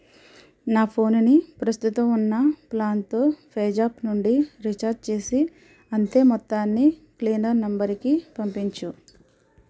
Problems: background sounds at intervals